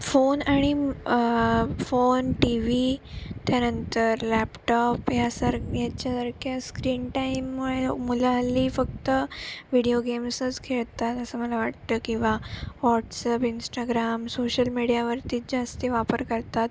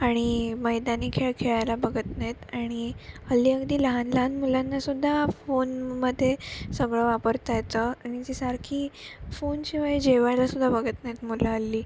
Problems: constant background noise